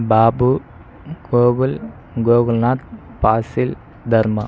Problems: none marked